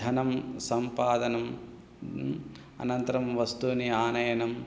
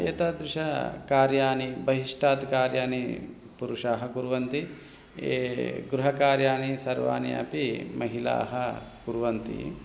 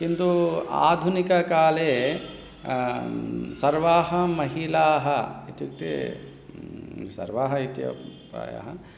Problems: none marked